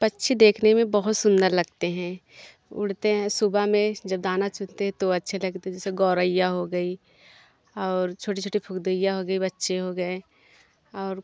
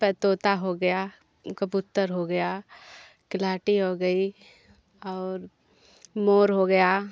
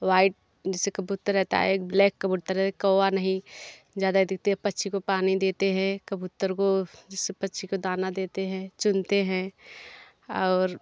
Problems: background sounds at intervals